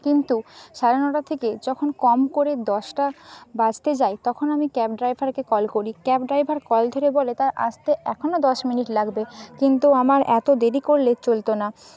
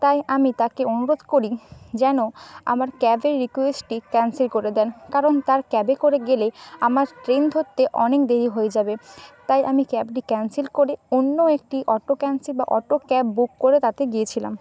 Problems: constant background noise